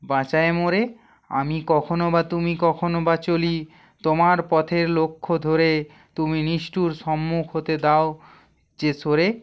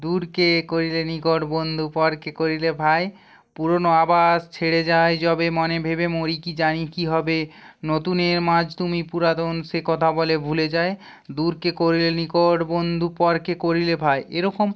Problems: none marked